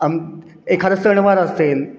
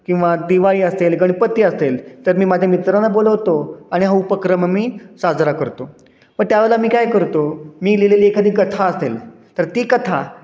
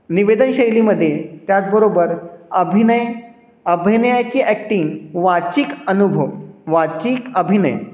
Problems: constant background noise, echo